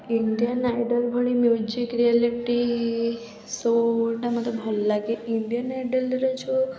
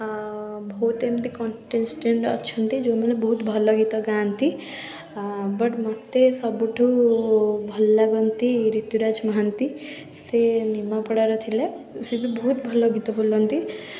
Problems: continuous background conversations